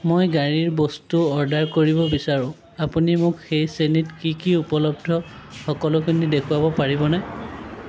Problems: constant background noise, continuous background conversations